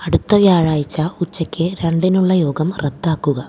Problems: low volume